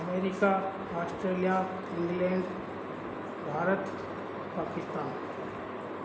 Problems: constant background noise